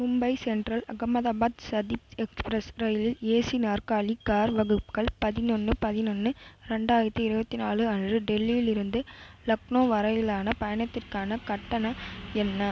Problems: constant background noise